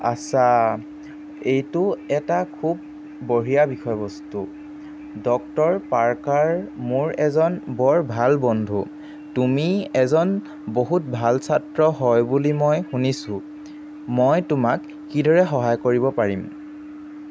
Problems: constant background noise